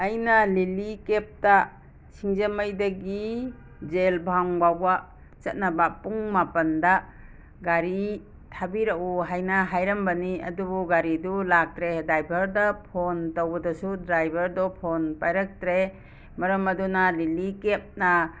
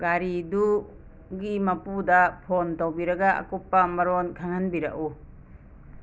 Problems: background sounds at intervals